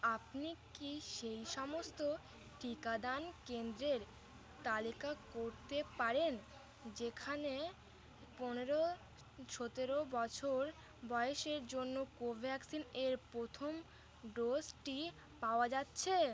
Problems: constant background noise